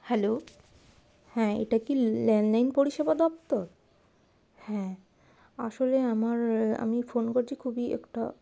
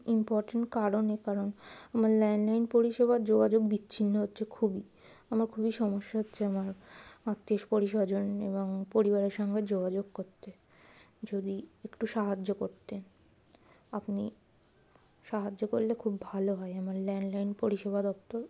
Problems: constant background noise